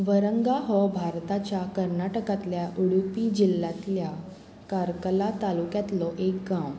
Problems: constant background noise